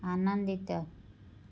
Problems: low volume